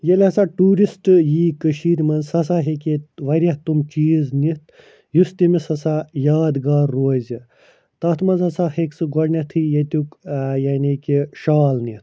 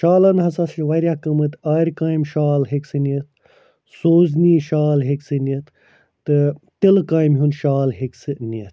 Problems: none marked